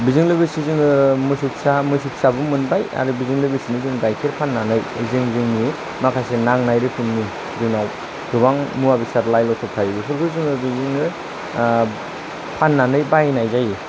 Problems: constant background noise